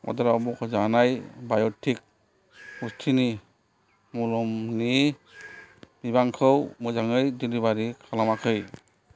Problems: none marked